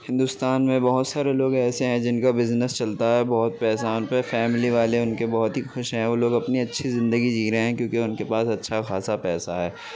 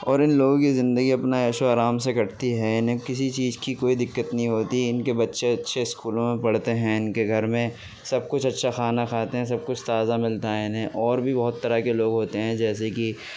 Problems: background sounds at intervals